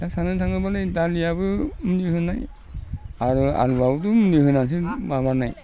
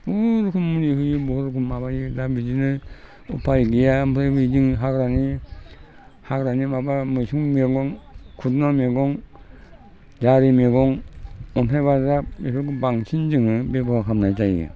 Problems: constant background noise